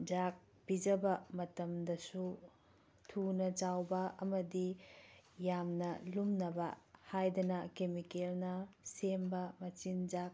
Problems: background sounds at intervals